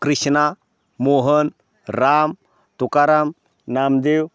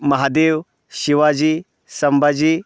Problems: constant background noise